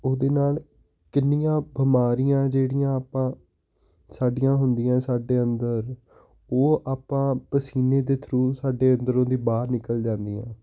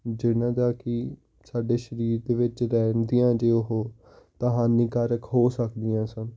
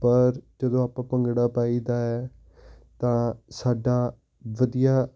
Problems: none marked